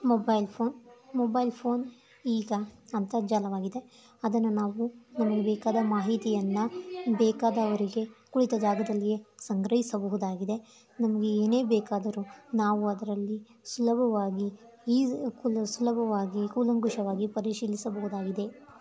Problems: background sounds at intervals